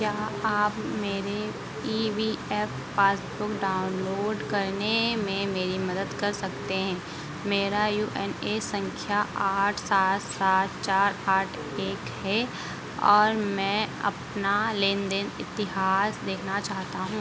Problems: constant background noise